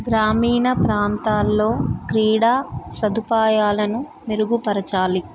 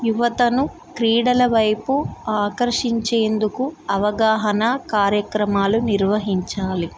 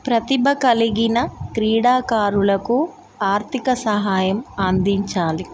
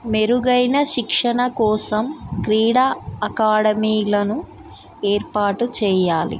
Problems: background sounds at intervals